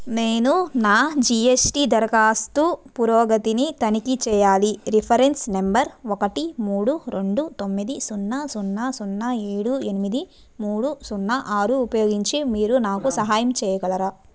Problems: background sounds at intervals